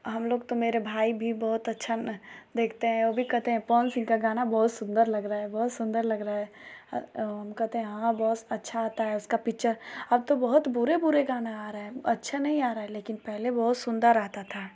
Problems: constant background noise